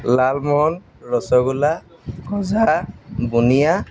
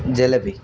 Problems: none marked